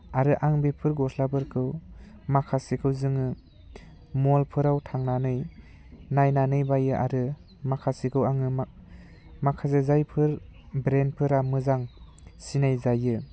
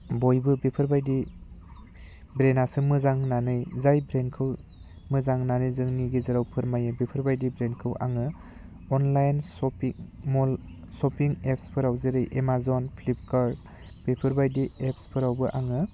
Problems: none marked